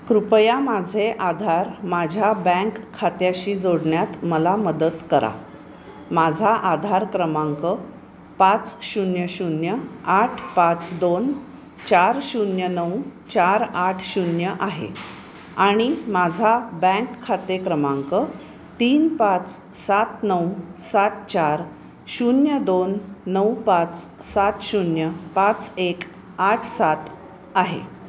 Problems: constant background noise